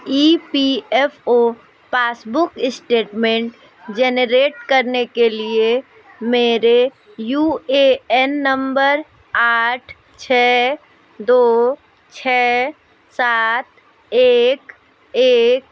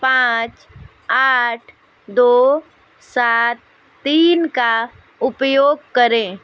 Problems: constant background noise, continuous background conversations